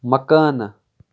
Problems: none marked